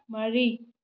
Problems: low volume